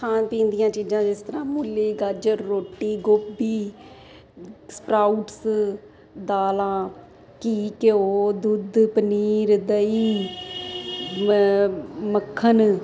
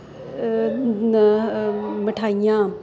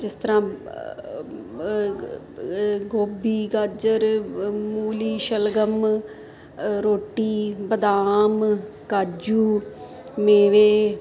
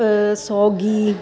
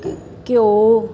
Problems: constant background noise